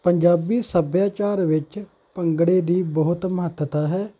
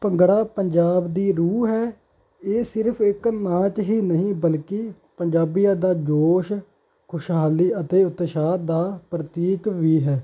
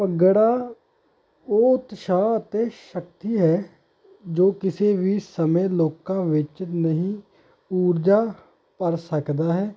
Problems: background sounds at intervals